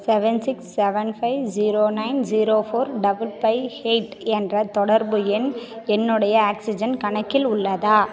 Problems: none marked